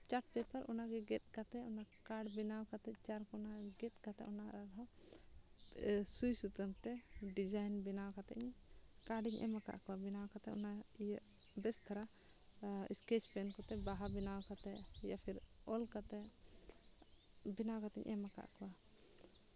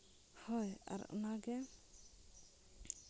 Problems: low volume